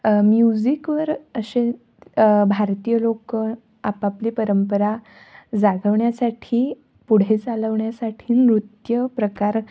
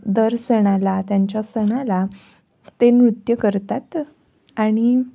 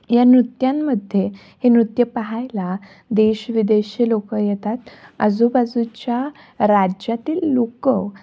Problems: background sounds at intervals